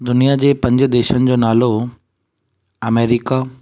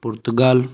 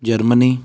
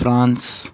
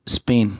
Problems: none marked